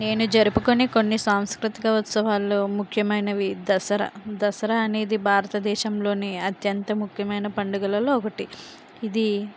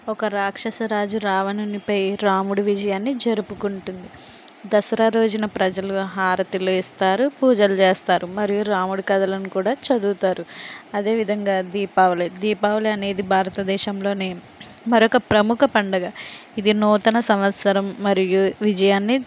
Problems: constant background noise